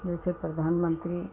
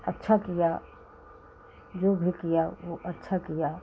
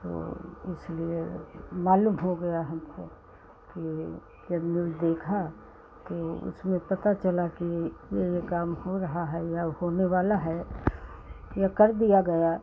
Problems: constant background noise